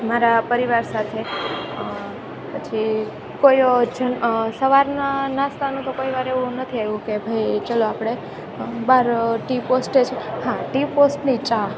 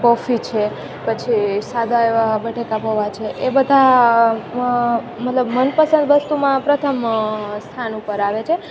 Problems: none marked